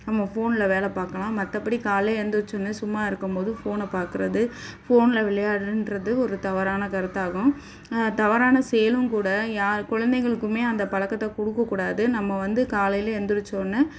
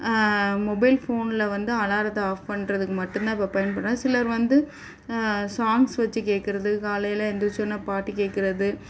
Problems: background sounds at intervals